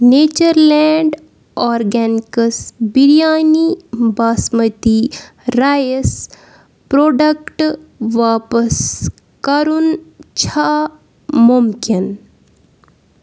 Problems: background sounds at intervals